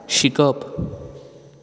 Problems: background sounds at intervals